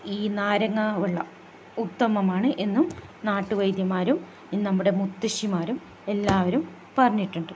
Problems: constant background noise, low volume